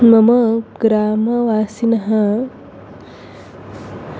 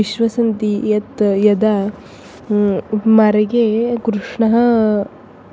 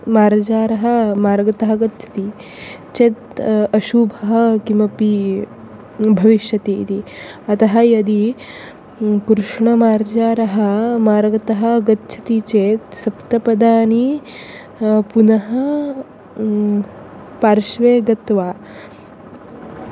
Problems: constant background noise